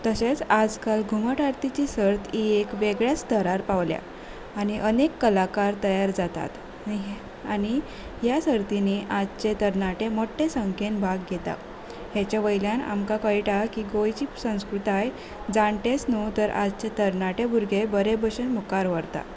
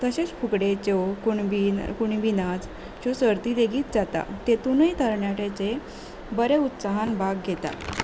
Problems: none marked